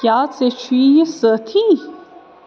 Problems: constant background noise